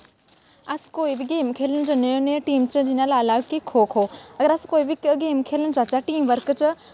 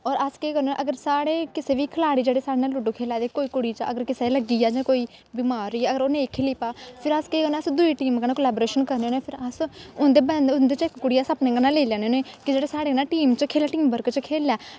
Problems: constant background noise